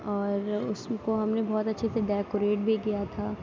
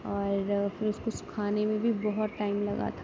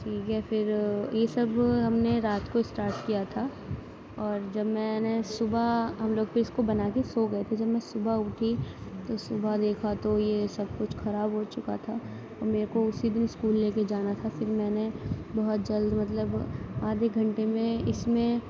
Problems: none marked